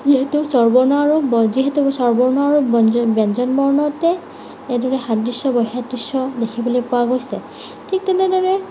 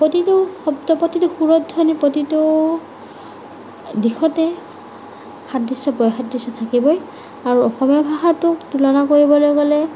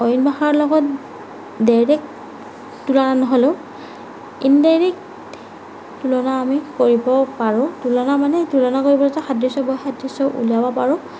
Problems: none marked